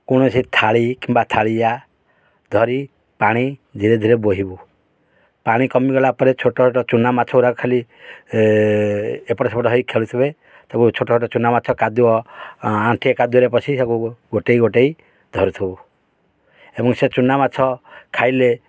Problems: none marked